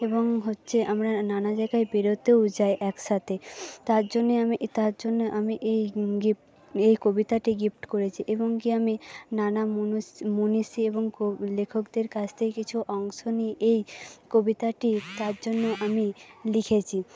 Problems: background sounds at intervals, background conversations at intervals